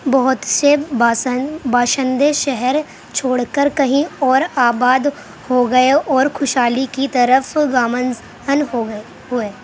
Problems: constant background noise